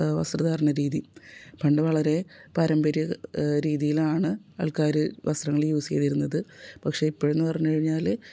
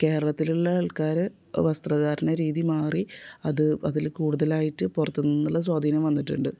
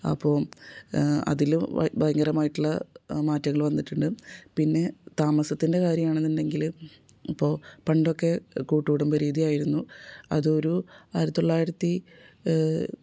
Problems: none marked